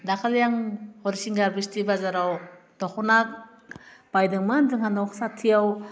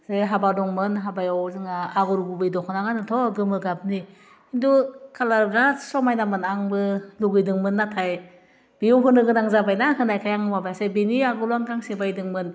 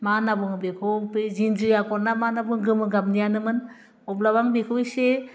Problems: none marked